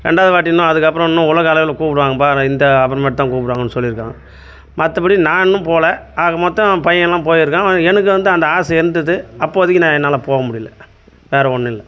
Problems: constant background noise